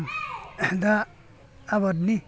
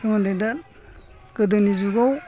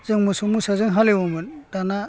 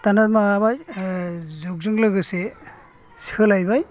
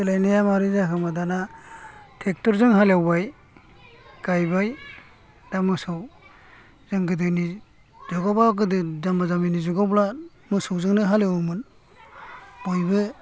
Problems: low volume